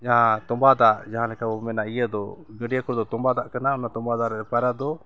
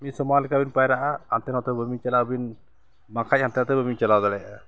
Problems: constant background noise